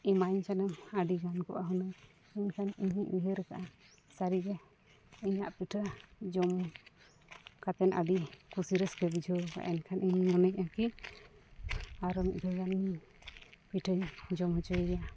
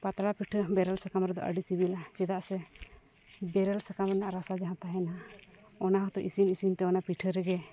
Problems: background sounds at intervals